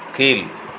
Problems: none marked